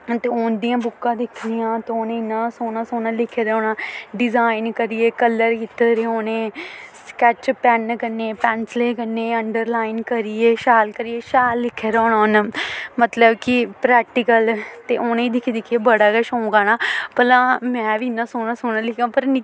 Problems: constant background noise